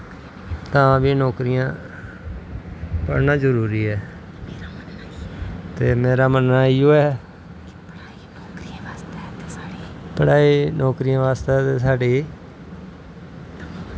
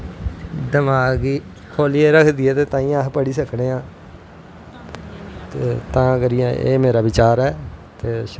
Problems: constant background noise